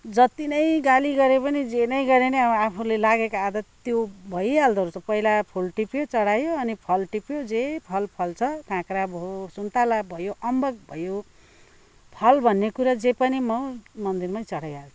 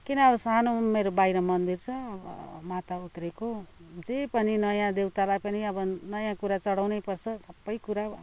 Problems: background conversations at intervals